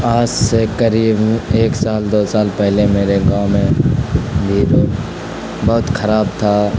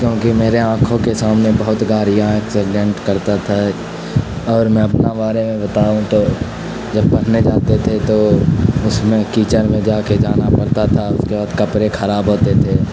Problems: constant background noise